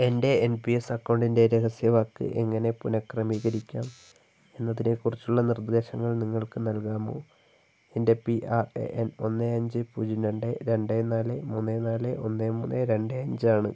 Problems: low volume